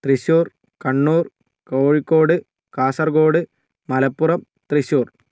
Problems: none marked